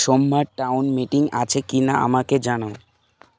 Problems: none marked